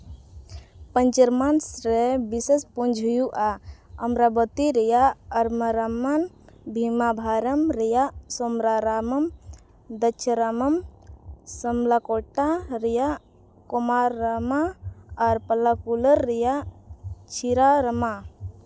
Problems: background sounds at intervals